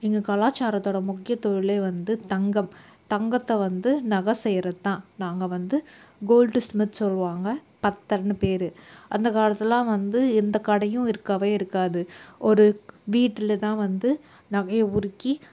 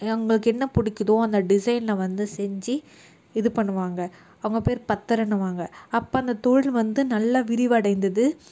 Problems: none marked